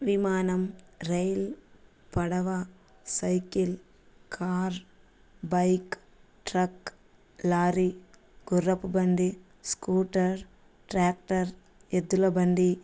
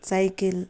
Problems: none marked